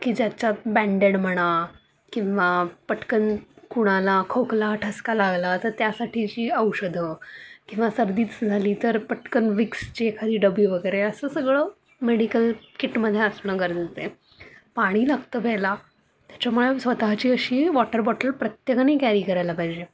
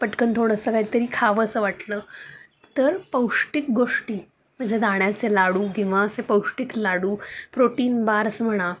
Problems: none marked